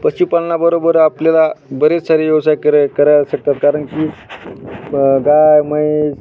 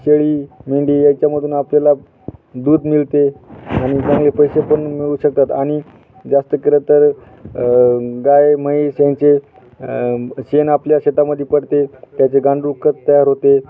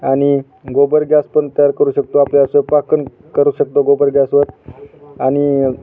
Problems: constant background noise, continuous background conversations